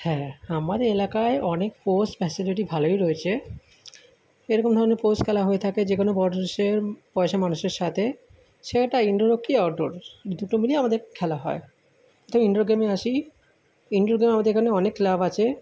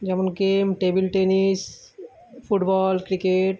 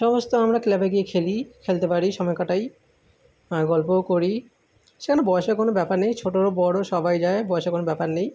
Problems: none marked